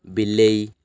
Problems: none marked